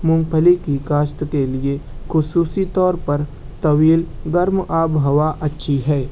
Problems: constant background noise